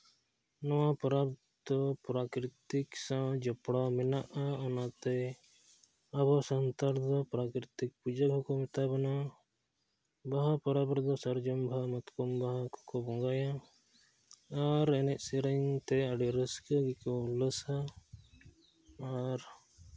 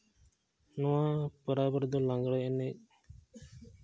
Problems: none marked